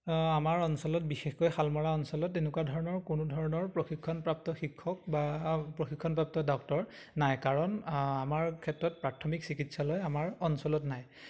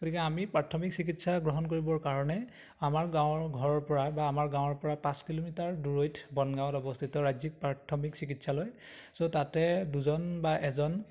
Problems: none marked